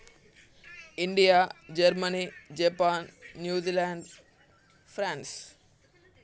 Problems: constant background noise, continuous background conversations